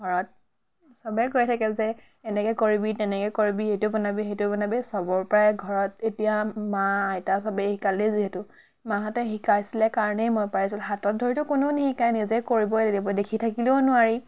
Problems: none marked